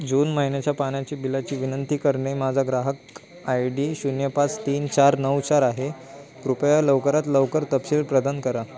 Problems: constant background noise, background conversations at intervals